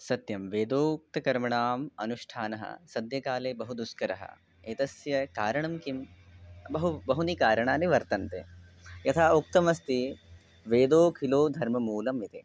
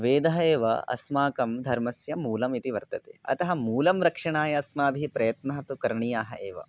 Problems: none marked